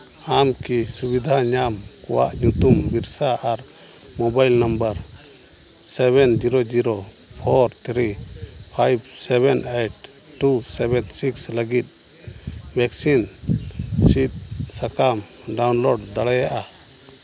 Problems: constant background noise, background conversations at intervals